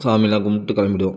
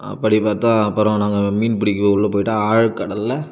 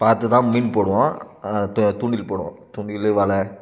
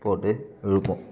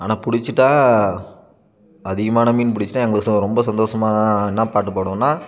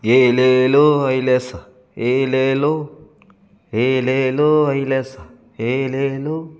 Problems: background sounds at intervals